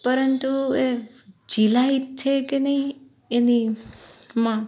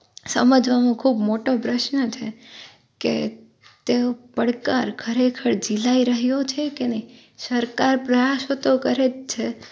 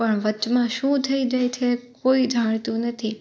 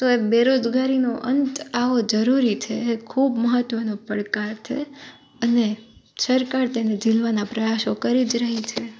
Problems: none marked